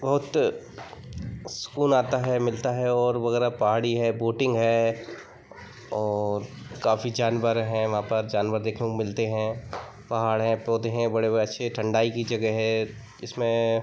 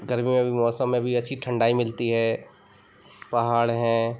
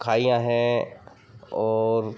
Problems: constant background noise, background conversations at intervals